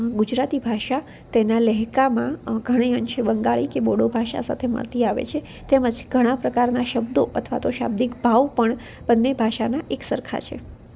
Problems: none marked